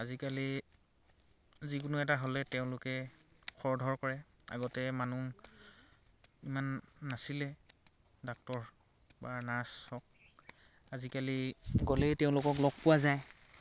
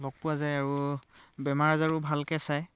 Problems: constant background noise